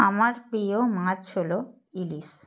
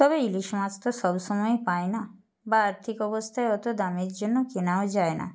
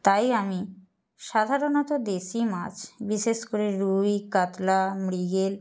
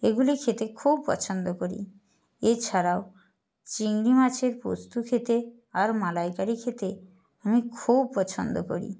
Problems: none marked